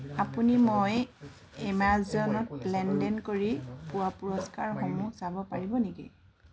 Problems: background sounds at intervals, background conversations at intervals